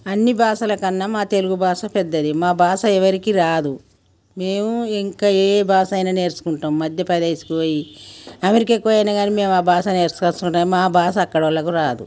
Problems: none marked